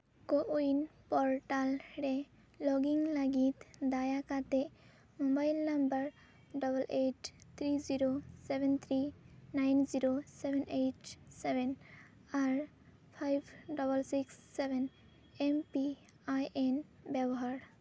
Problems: none marked